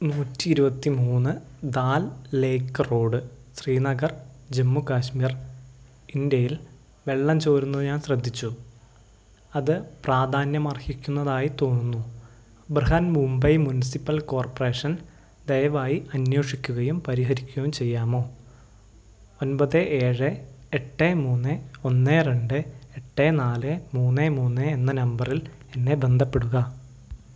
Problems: low volume